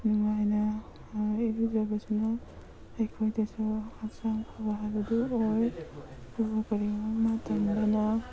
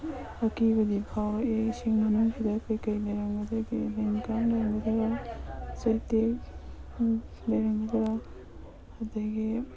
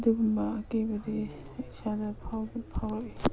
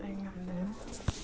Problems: background sounds at intervals, background conversations at intervals